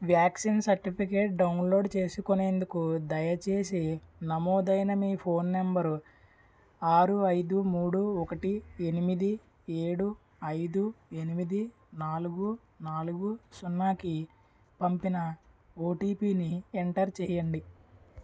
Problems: none marked